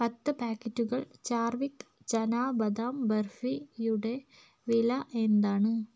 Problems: none marked